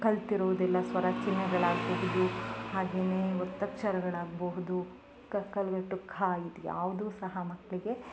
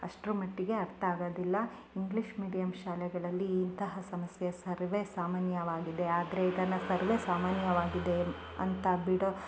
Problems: background sounds at intervals